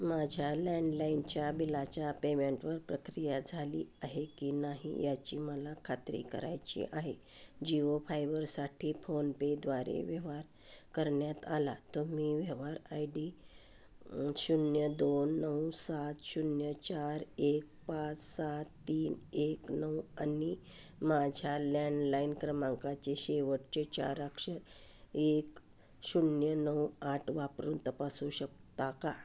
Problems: none marked